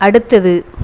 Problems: constant background noise